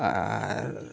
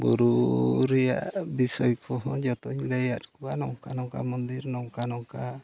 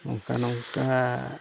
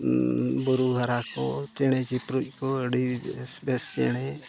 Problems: background sounds at intervals, background conversations at intervals